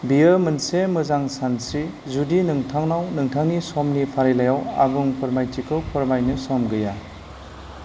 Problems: none marked